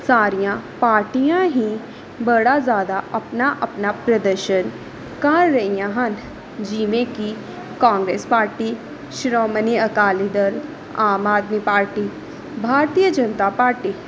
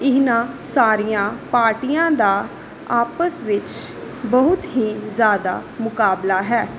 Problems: background sounds at intervals